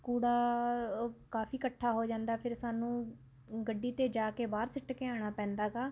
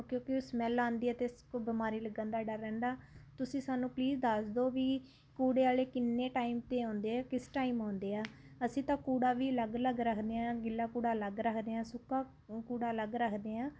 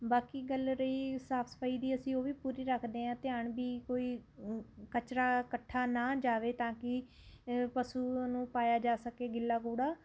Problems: constant background noise